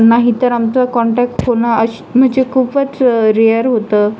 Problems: constant background noise, background conversations at intervals